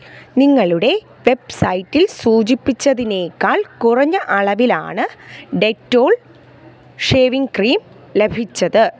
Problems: background sounds at intervals